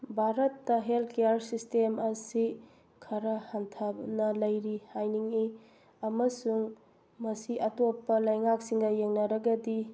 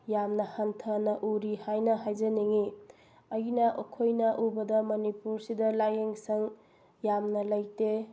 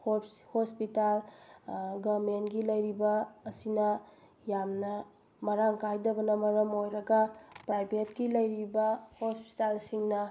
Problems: none marked